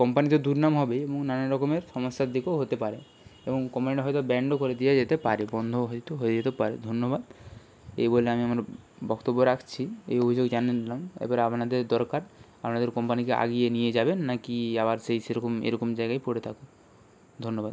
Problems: constant background noise